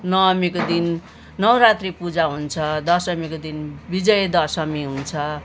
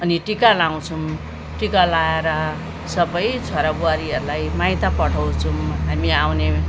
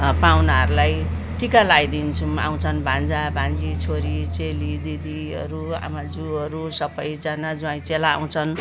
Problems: constant background noise